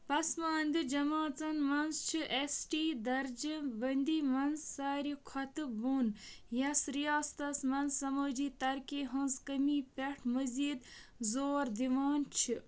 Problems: background sounds at intervals